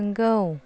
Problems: none marked